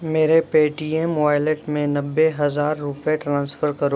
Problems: constant background noise